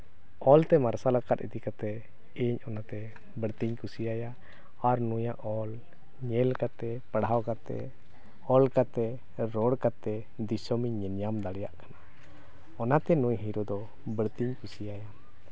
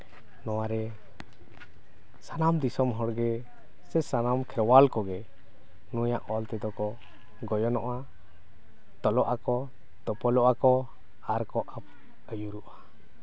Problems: none marked